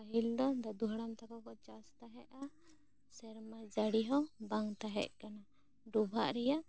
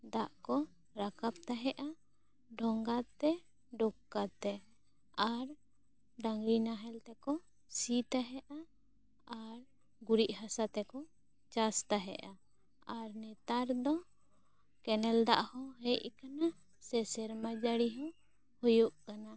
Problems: low volume